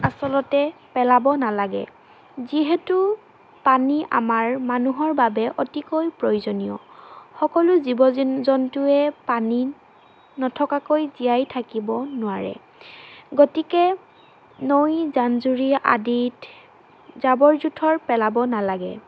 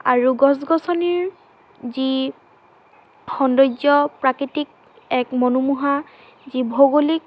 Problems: constant background noise